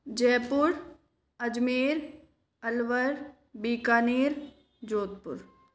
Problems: constant background noise, echo